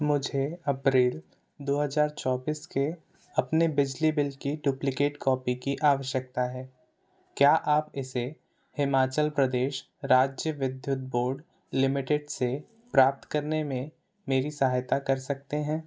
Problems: none marked